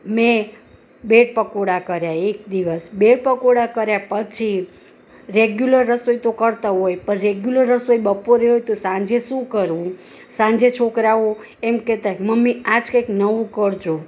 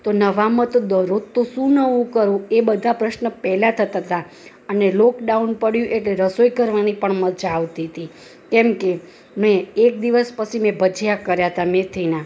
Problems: none marked